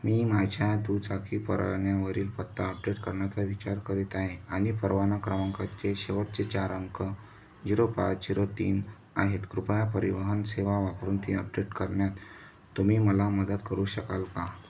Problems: background sounds at intervals